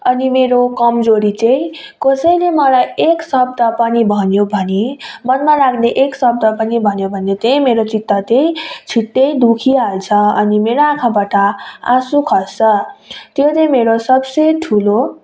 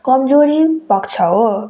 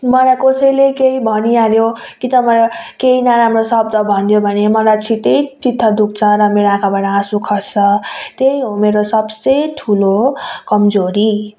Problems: background conversations at intervals